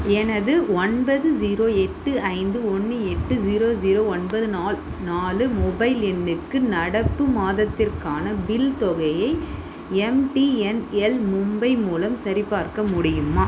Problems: constant background noise